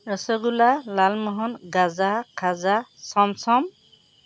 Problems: none marked